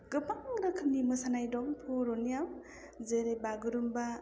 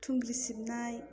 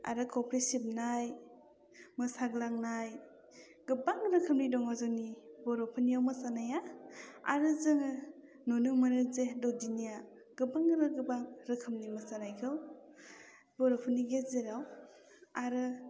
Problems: low volume